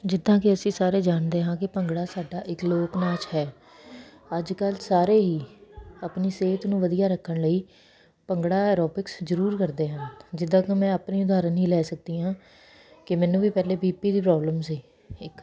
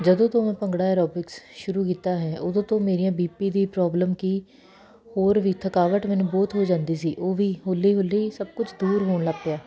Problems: constant background noise